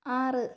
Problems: low volume